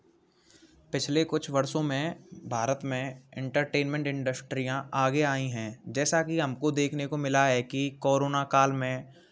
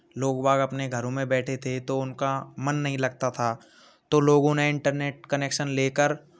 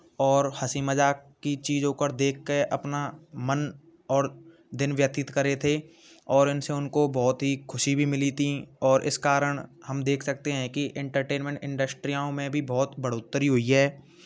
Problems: constant background noise